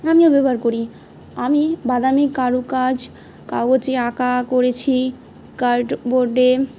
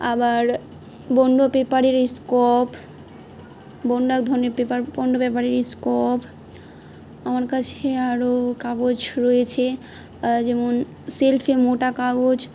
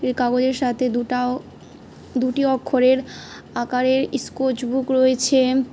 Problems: background sounds at intervals